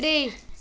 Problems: constant background noise